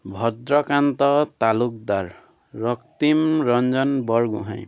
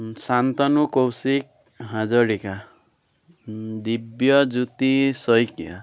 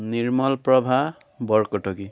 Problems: constant background noise